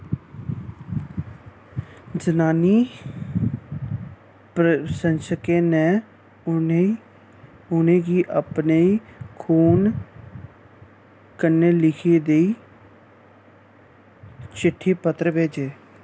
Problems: none marked